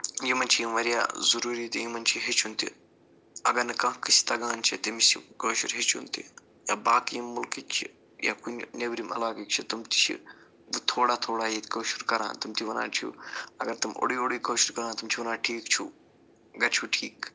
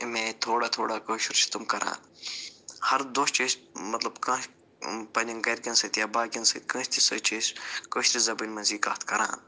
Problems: low volume